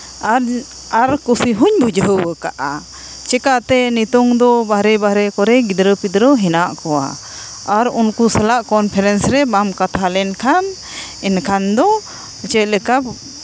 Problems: constant background noise